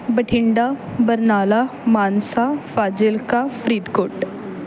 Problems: none marked